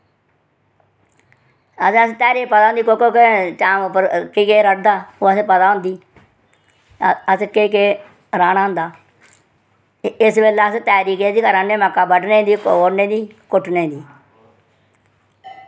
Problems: none marked